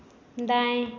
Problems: none marked